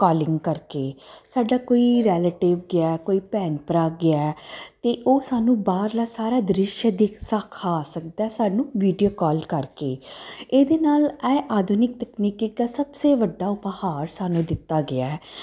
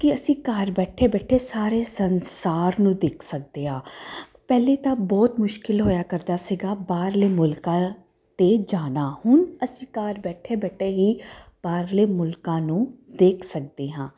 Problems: constant background noise